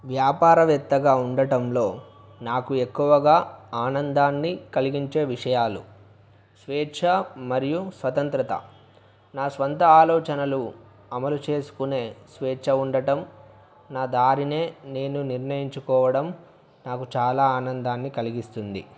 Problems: background sounds at intervals